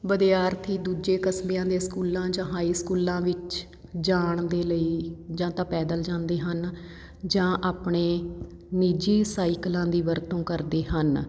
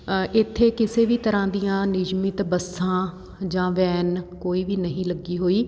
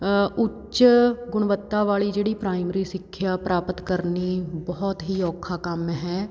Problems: none marked